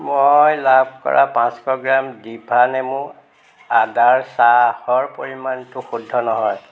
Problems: none marked